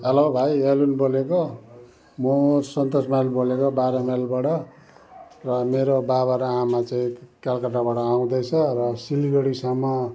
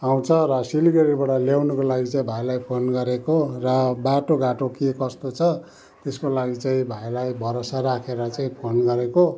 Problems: background sounds at intervals